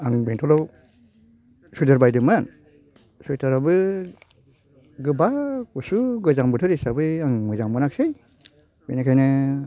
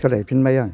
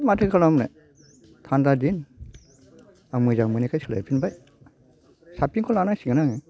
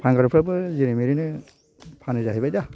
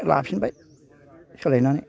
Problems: low volume